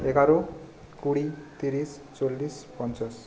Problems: constant background noise, background conversations at intervals